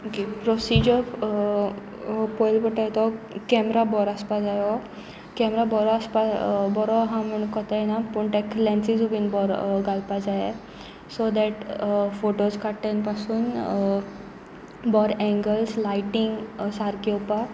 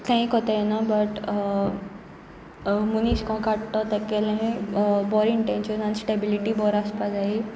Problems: continuous background conversations